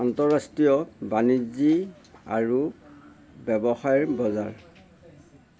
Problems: constant background noise